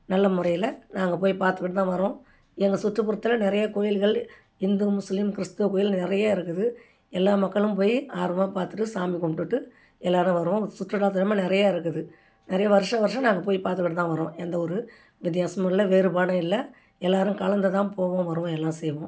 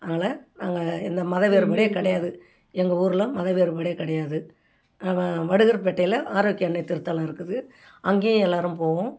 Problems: none marked